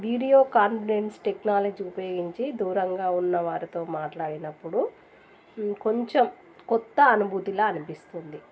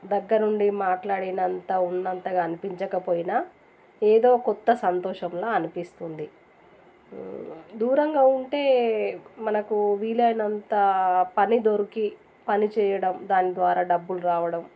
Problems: none marked